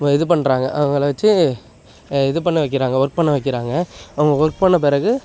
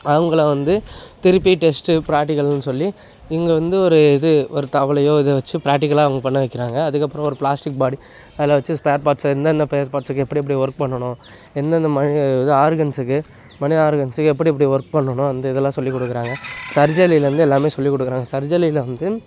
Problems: background sounds at intervals